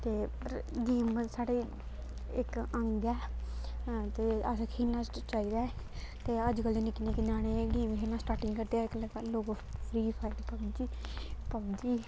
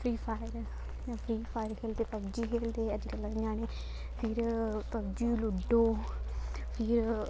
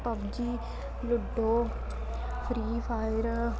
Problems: constant background noise